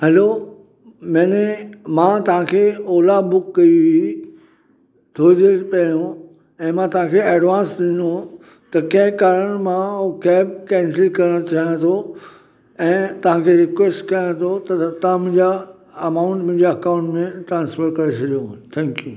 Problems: constant background noise, echo